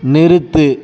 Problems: background conversations at intervals